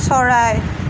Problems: constant background noise